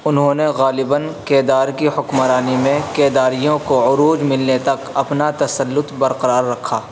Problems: constant background noise